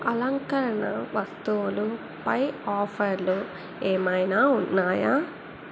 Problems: constant background noise